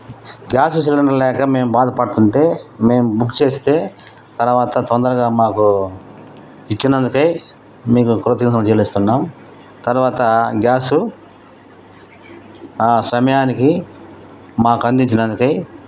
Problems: constant background noise